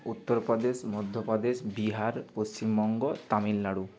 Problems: continuous background conversations